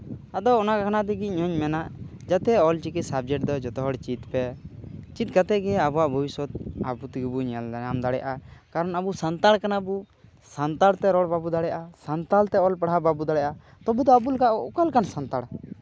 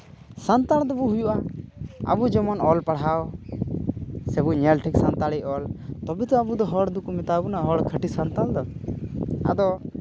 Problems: background sounds at intervals